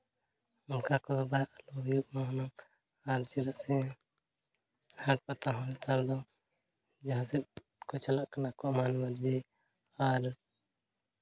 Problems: none marked